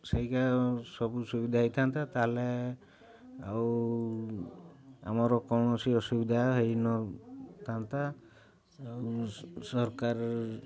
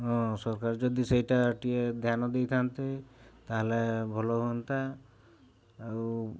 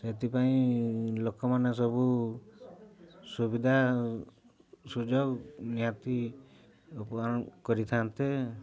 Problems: none marked